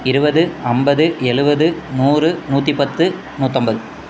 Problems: background sounds at intervals